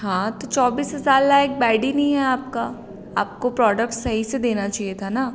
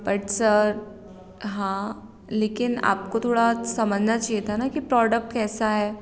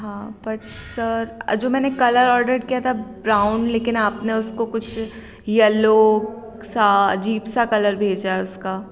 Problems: none marked